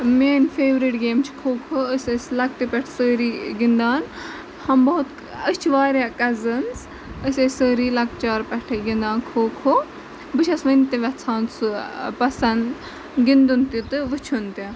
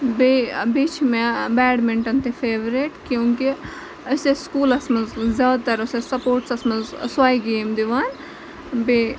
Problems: constant background noise, background conversations at intervals